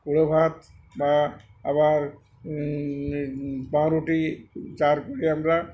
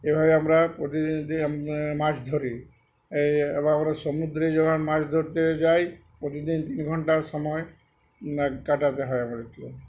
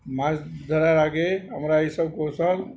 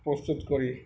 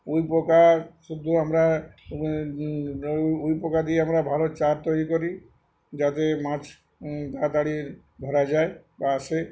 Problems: background conversations at intervals